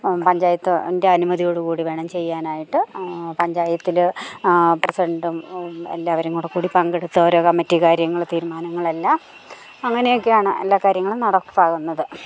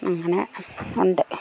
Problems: none marked